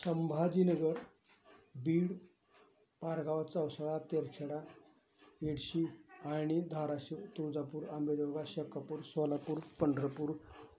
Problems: none marked